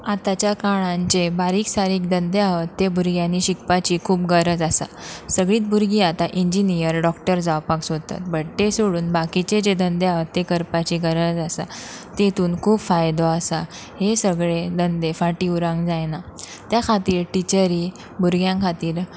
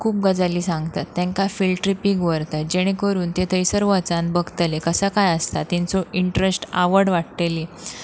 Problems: constant background noise